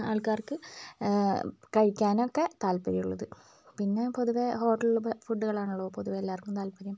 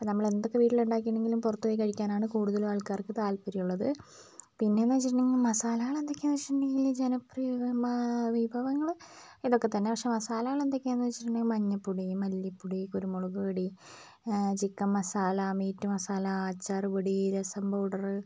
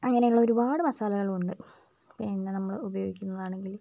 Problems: low volume